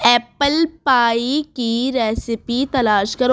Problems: background sounds at intervals